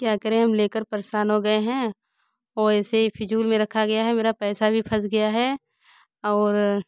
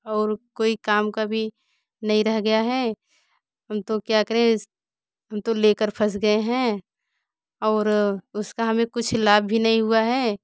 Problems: background sounds at intervals